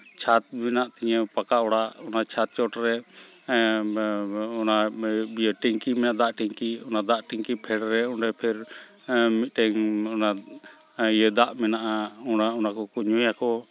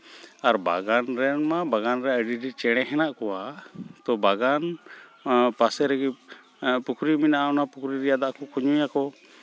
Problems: none marked